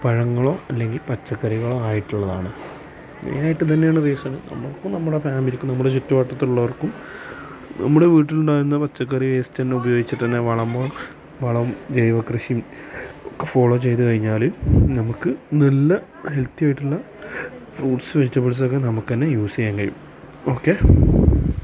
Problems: constant background noise